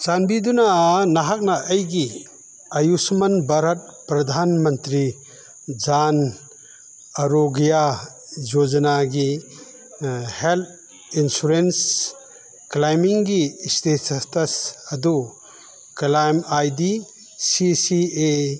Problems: background sounds at intervals